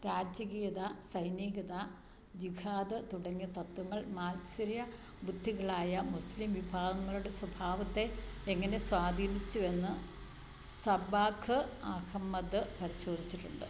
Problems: low volume